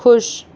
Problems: none marked